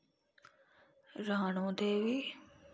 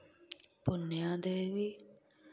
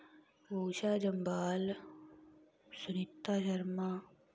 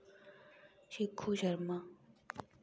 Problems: low volume